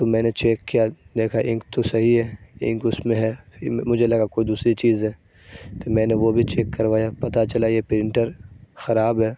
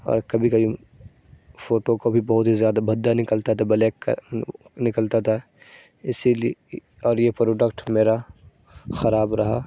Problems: constant background noise